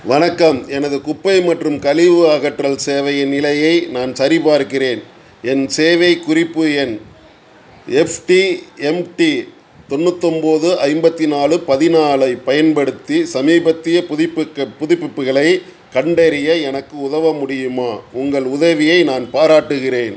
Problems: none marked